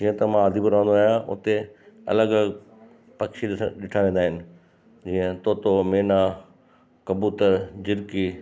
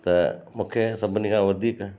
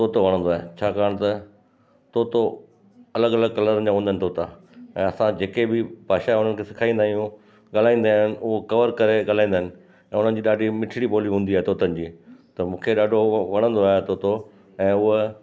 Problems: constant background noise, echo